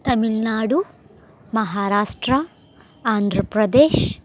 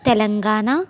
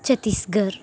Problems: constant background noise